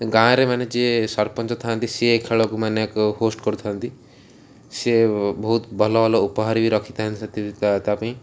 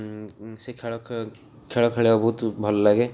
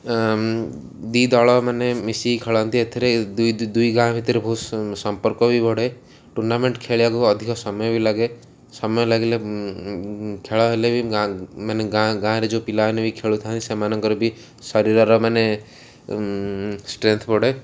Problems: none marked